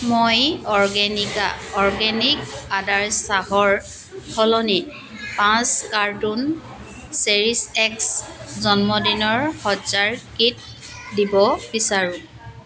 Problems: constant background noise, continuous background conversations